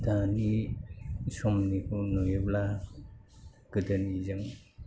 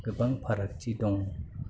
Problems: low volume